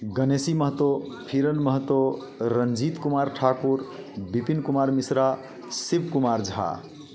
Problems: constant background noise, background conversations at intervals